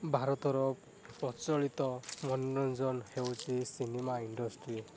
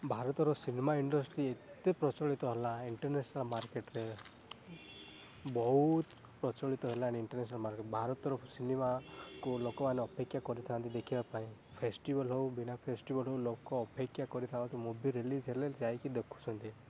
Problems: none marked